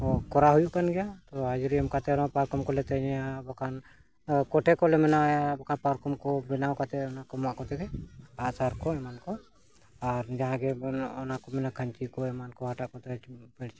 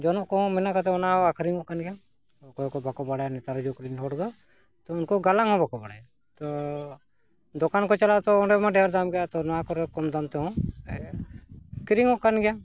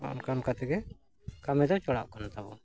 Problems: background sounds at intervals, background conversations at intervals